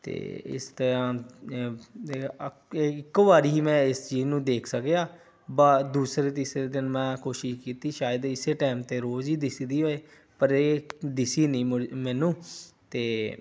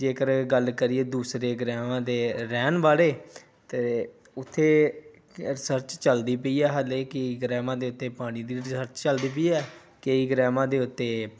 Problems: none marked